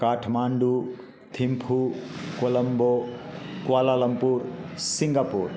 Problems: constant background noise, background conversations at intervals